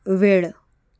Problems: background sounds at intervals